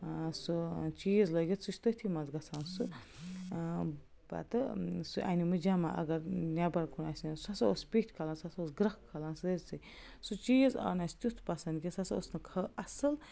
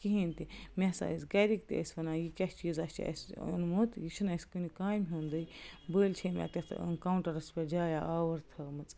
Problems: constant background noise